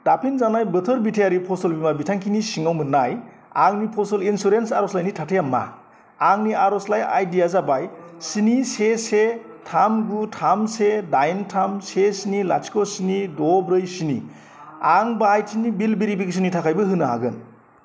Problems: constant background noise